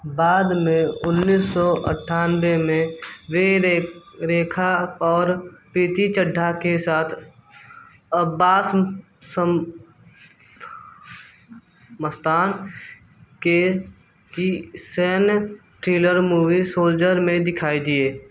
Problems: background sounds at intervals